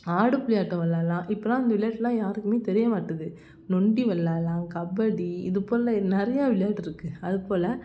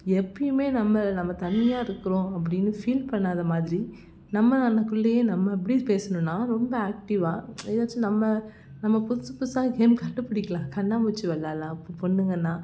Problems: none marked